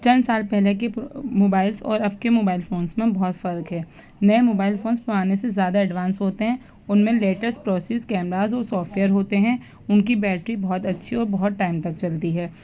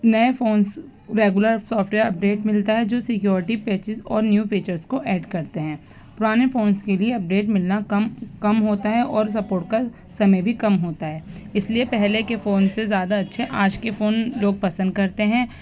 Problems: background sounds at intervals